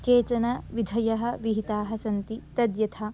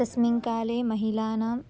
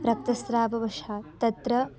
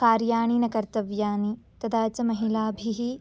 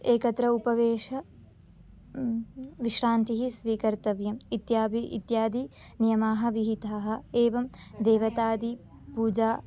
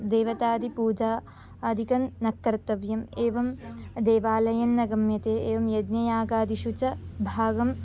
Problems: none marked